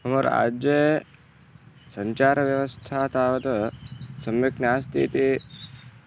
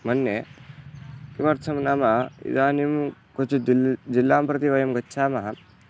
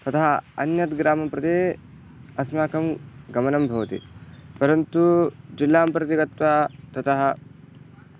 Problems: background sounds at intervals